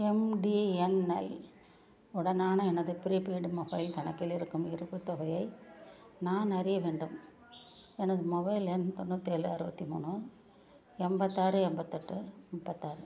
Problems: background sounds at intervals, low volume